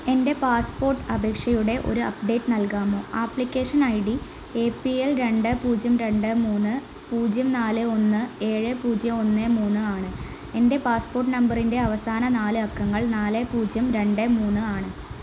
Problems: constant background noise, low volume